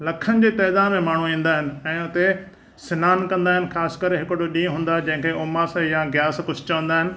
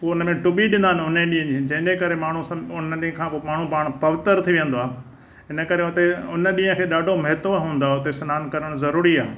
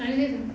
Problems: background sounds at intervals